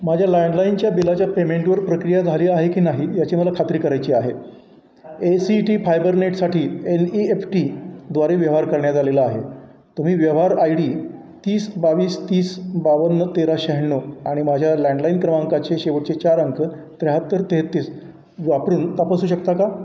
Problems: none marked